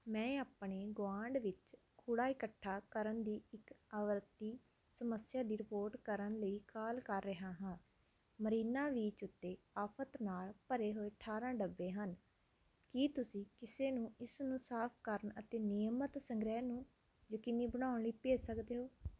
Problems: none marked